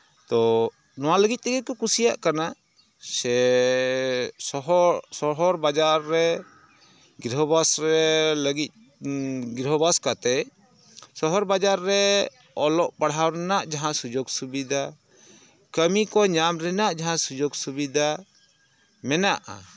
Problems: none marked